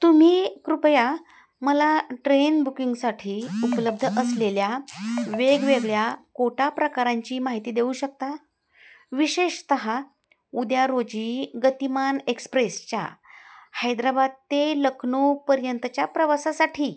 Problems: none marked